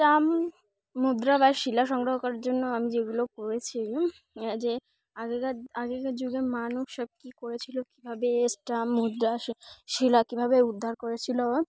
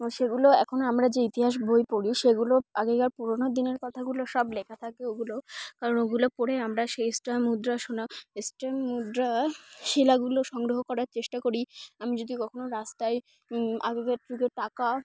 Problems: none marked